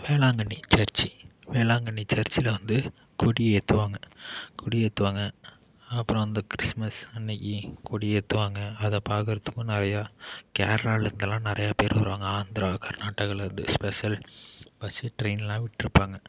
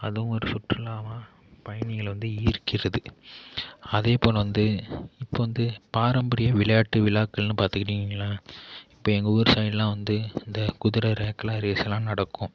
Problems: none marked